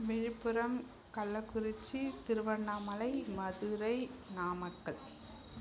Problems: constant background noise, low volume